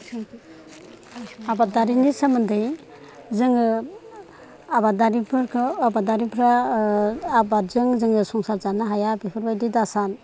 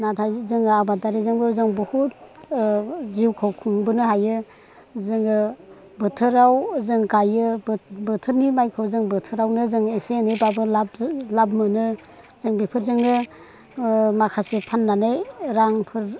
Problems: none marked